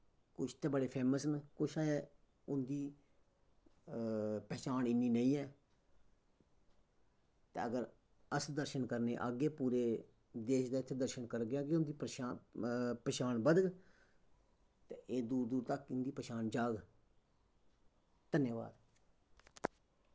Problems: background sounds at intervals, echo